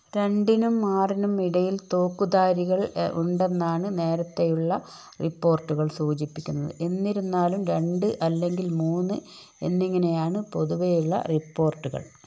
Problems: none marked